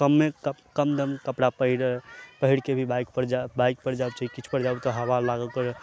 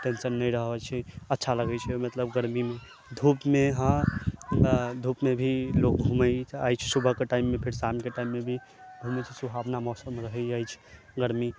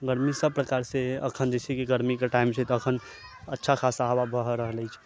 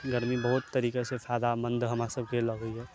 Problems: constant background noise